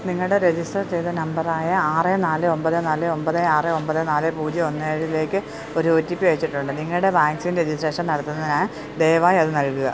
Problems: constant background noise